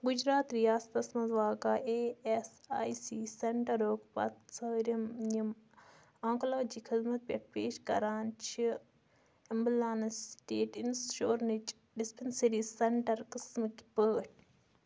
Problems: constant background noise